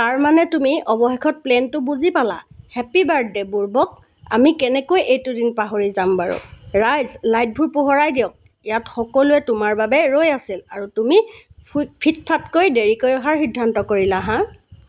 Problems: constant background noise